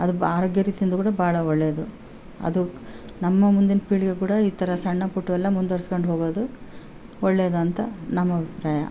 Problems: background sounds at intervals